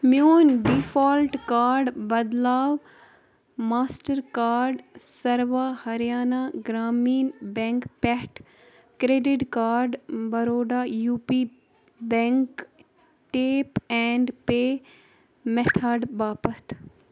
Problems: background sounds at intervals, background conversations at intervals